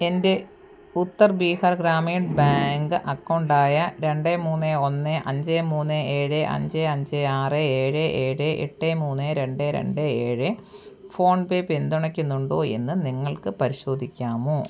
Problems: none marked